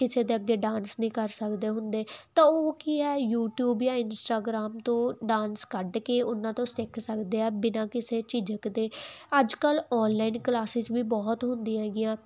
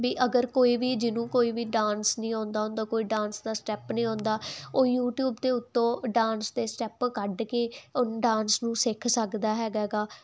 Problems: none marked